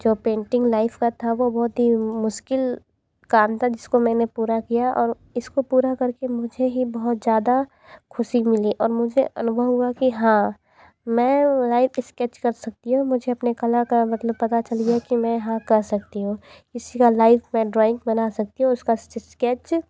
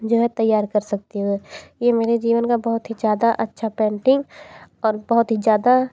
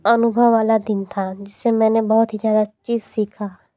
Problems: background sounds at intervals, background conversations at intervals